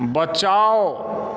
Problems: background sounds at intervals